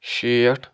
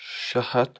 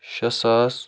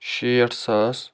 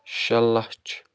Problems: constant background noise